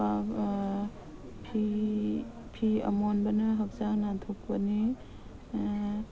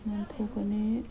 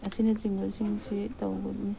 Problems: background sounds at intervals, background conversations at intervals